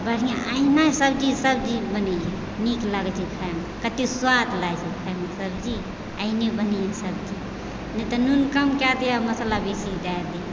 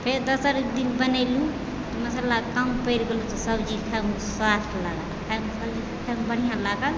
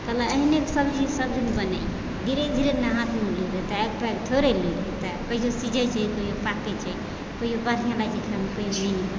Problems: background sounds at intervals, background conversations at intervals